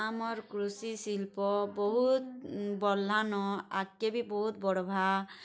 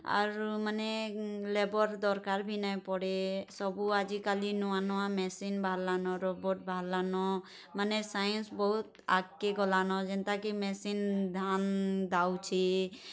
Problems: none marked